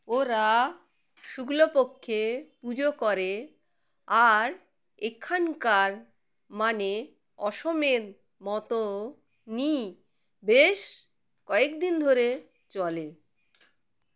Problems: background sounds at intervals